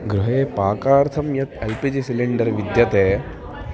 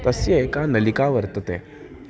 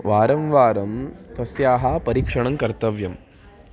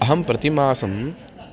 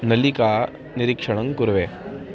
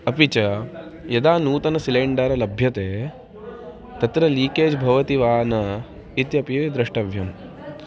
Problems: continuous background conversations